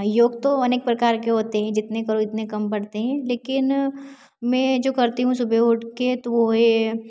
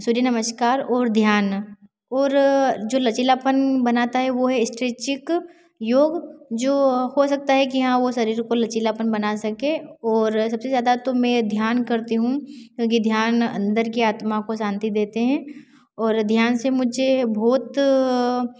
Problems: constant background noise